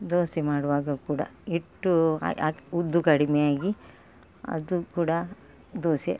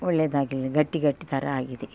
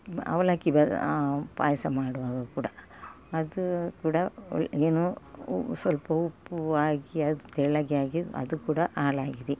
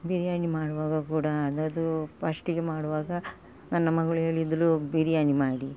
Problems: none marked